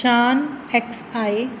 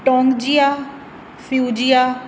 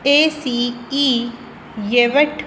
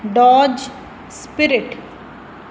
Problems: constant background noise